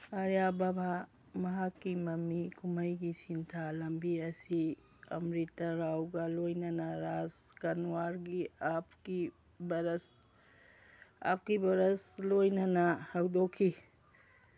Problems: background sounds at intervals